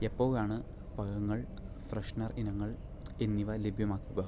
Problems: low volume